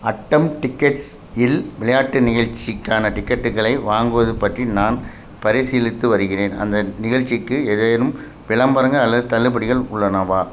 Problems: constant background noise